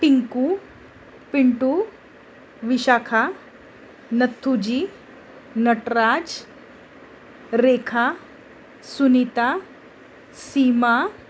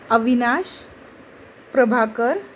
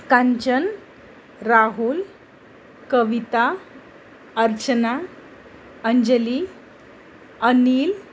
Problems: constant background noise